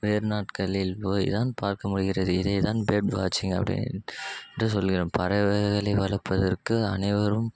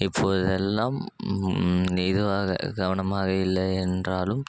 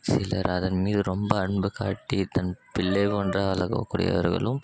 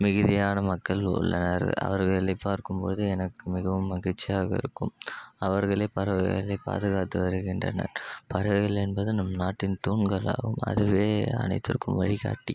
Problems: constant background noise